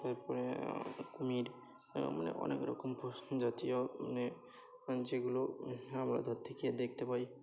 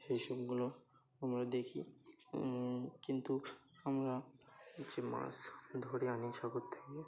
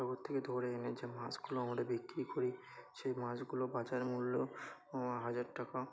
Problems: constant background noise, continuous background conversations